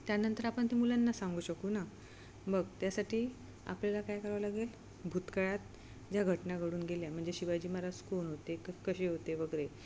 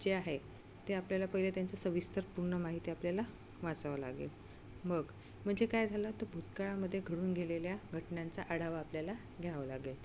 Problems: none marked